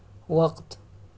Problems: none marked